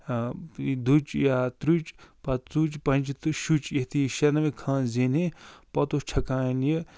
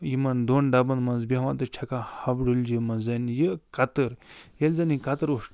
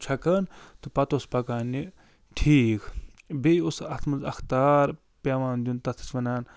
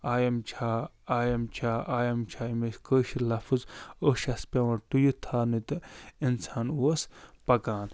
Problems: none marked